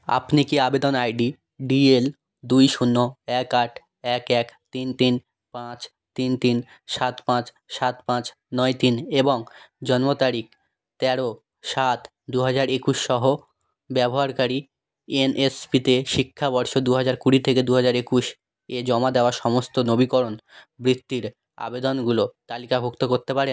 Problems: none marked